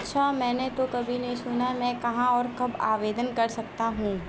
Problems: constant background noise